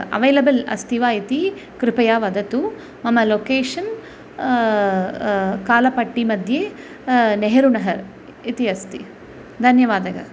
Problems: constant background noise